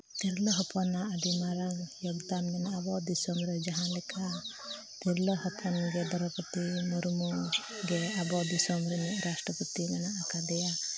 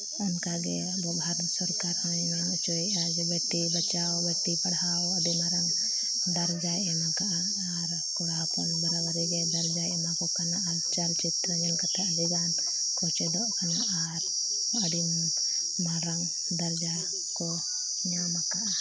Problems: constant background noise, low volume